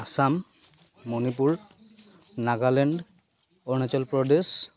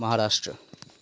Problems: none marked